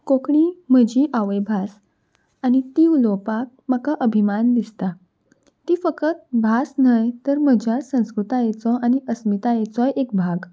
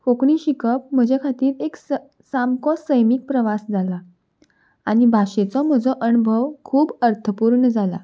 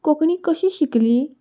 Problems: none marked